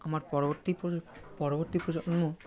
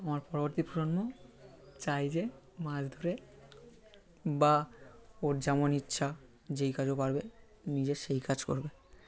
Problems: none marked